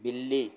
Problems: none marked